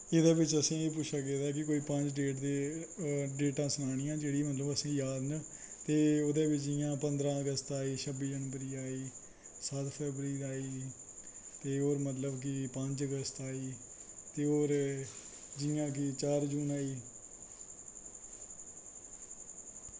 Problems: constant background noise